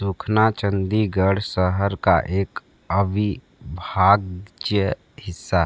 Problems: constant background noise